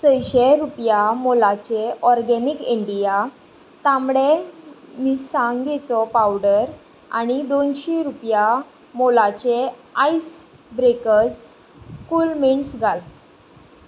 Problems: constant background noise